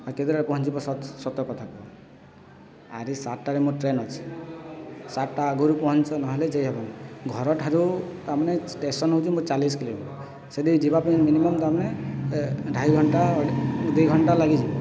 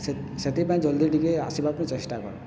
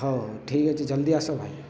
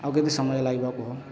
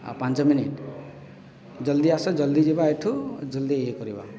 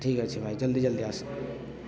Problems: constant background noise, continuous background conversations